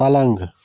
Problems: constant background noise